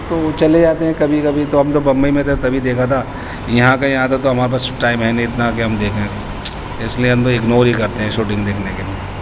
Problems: constant background noise